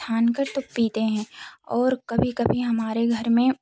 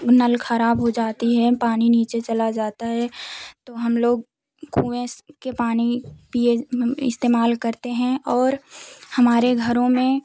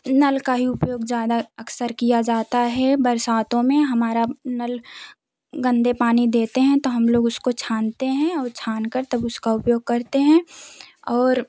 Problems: background sounds at intervals